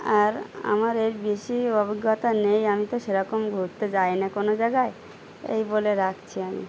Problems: none marked